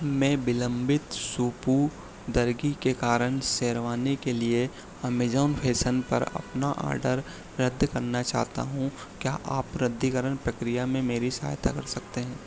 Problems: background sounds at intervals